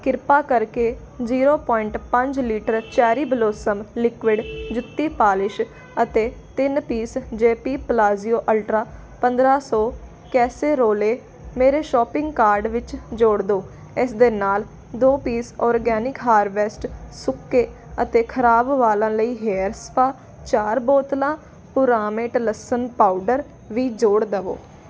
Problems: constant background noise